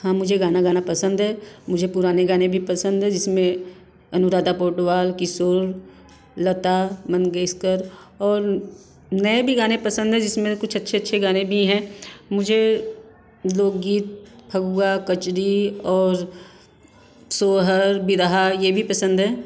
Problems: none marked